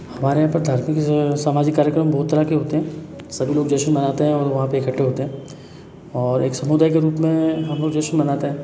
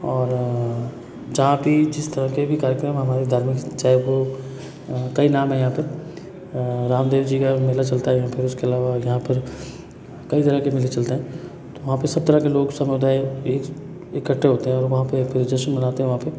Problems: background sounds at intervals